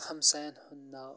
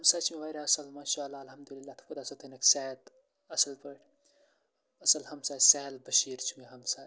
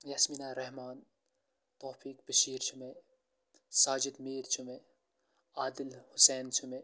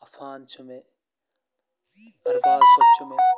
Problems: constant background noise